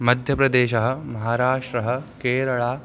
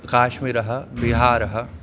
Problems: none marked